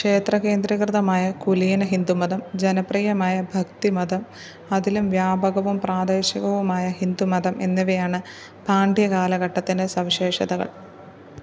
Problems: none marked